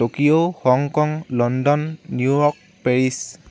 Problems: none marked